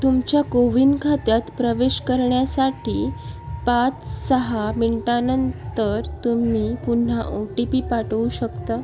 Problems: constant background noise, background conversations at intervals